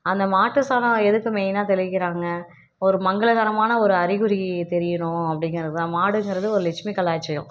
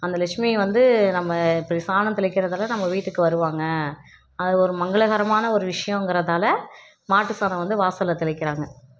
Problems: none marked